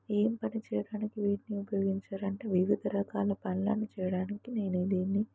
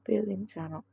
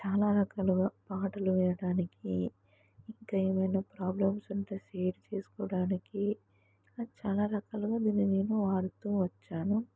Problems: low volume